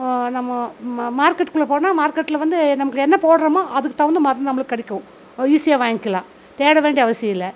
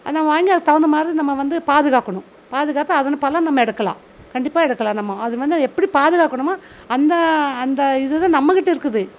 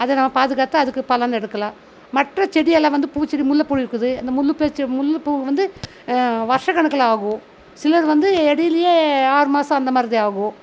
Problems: none marked